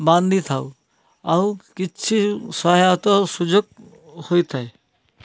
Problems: none marked